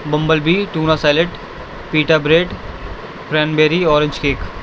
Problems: constant background noise